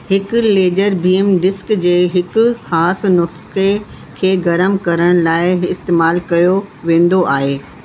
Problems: constant background noise, echo